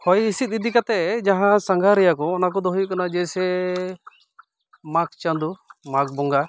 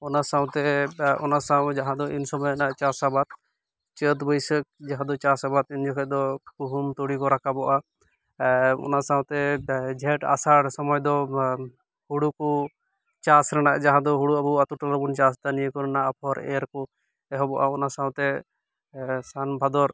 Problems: none marked